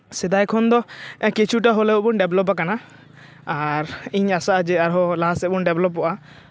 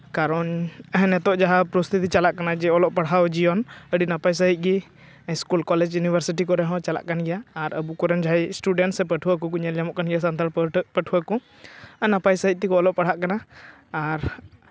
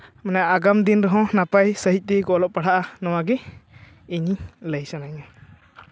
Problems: none marked